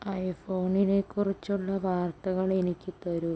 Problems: low volume